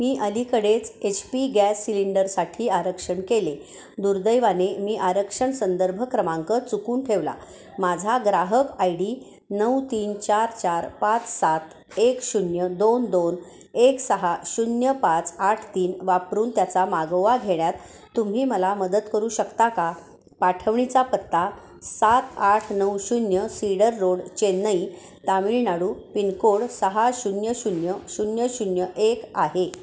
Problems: constant background noise, continuous background conversations, echo